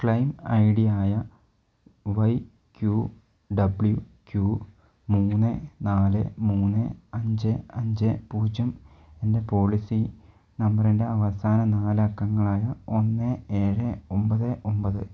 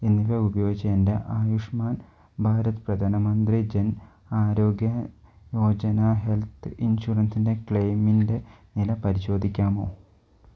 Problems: low volume